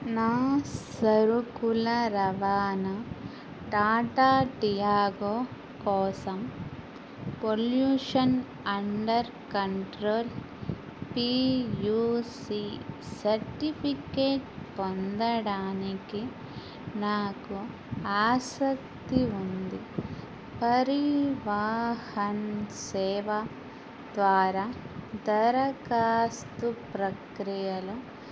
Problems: constant background noise